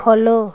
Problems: constant background noise